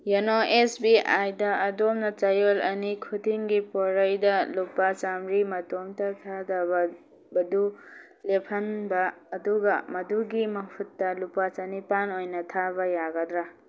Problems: background sounds at intervals